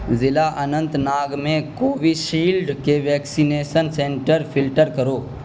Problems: constant background noise